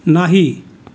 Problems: background sounds at intervals